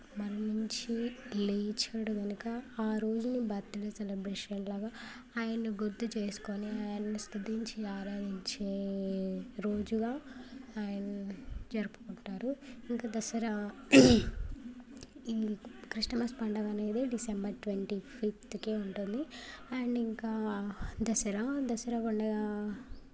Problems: background sounds at intervals